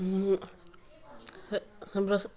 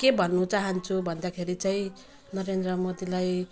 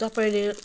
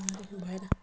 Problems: background sounds at intervals